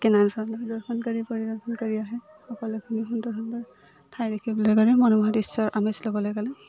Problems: constant background noise